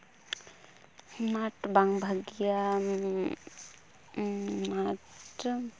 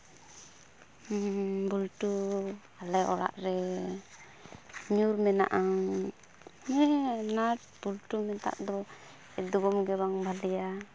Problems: none marked